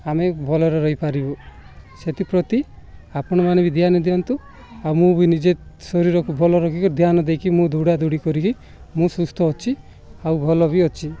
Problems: none marked